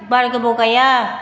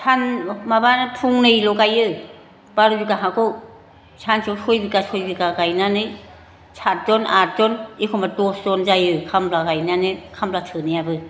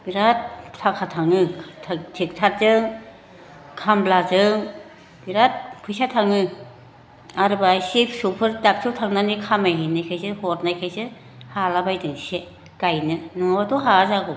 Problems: constant background noise